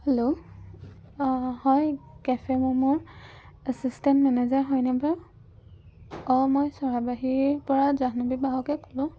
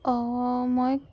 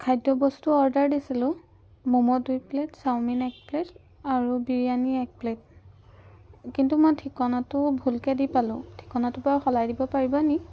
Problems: background sounds at intervals